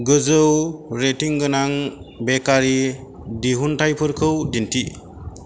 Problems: none marked